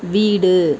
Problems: constant background noise